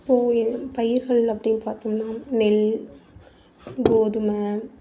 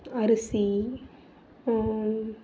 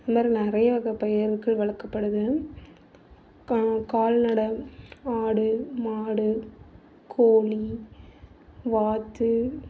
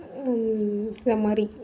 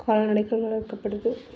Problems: background sounds at intervals